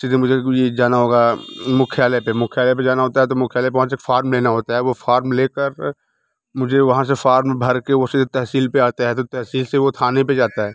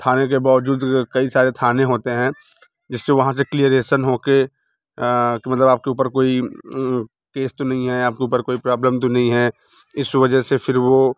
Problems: none marked